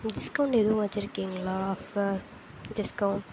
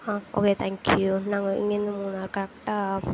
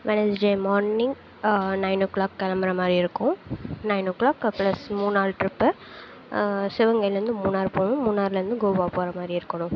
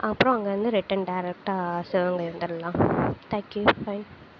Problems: constant background noise, low volume